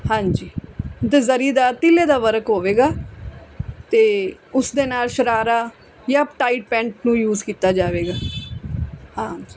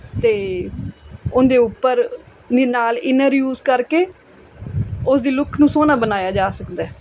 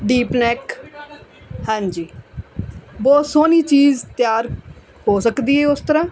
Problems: background conversations at intervals